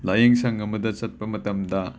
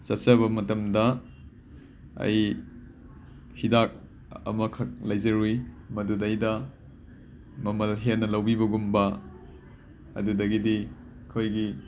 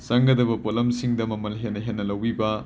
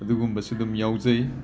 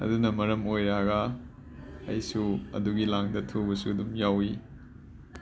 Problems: background sounds at intervals, background conversations at intervals